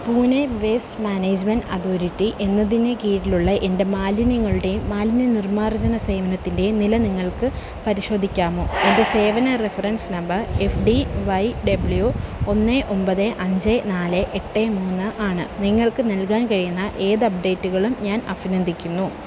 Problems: constant background noise